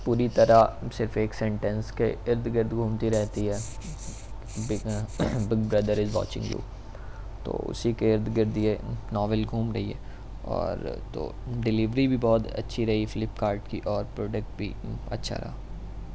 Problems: none marked